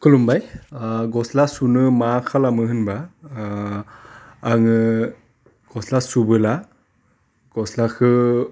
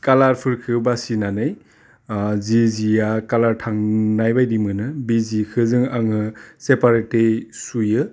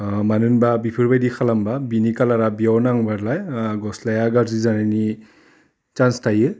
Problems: none marked